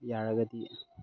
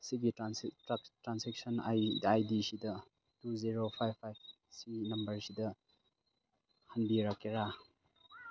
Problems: background sounds at intervals